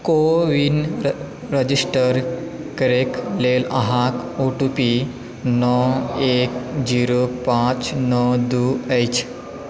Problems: background conversations at intervals